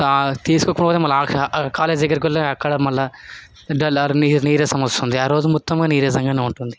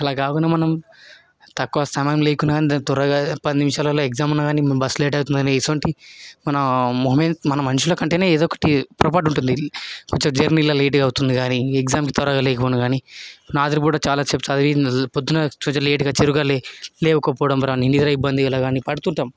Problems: constant background noise, continuous background conversations